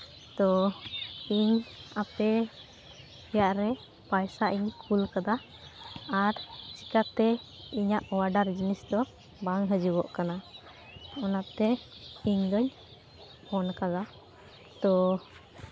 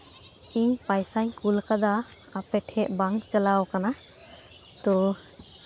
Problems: constant background noise, continuous background conversations